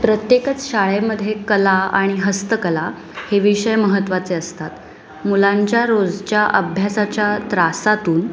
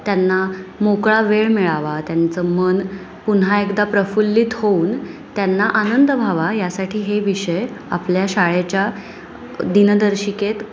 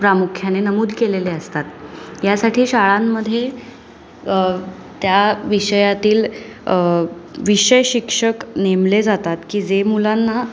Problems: constant background noise, continuous background conversations